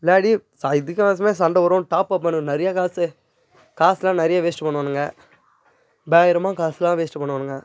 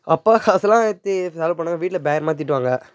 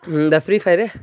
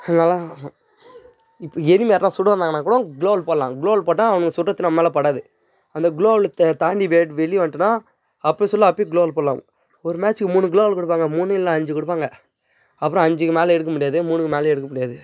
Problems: background conversations at intervals